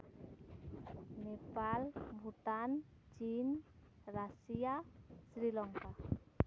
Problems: constant background noise